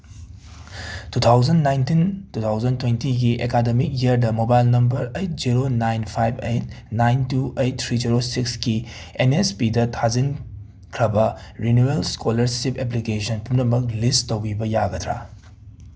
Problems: background sounds at intervals